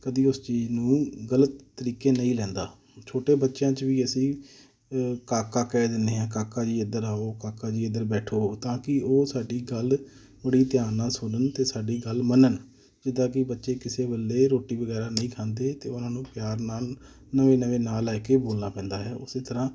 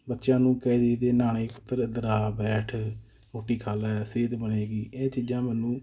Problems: none marked